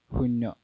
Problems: none marked